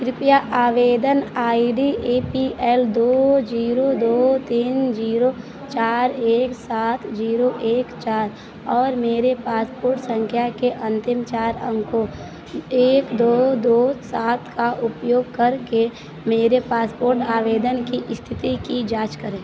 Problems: none marked